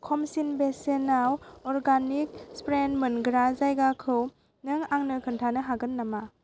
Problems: constant background noise